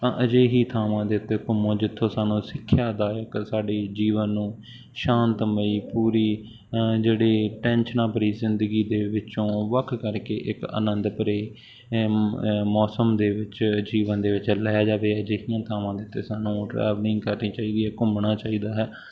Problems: none marked